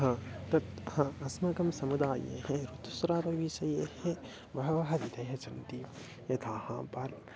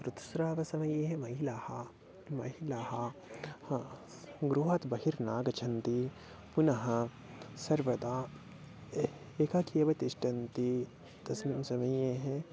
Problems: low volume